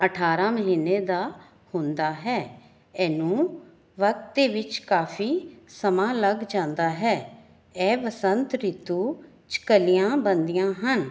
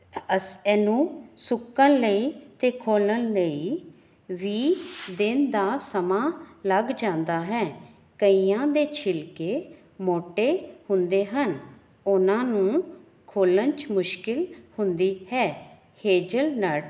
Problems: background sounds at intervals